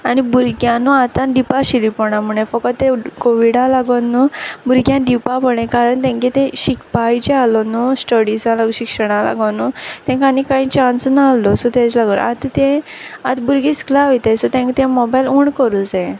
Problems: none marked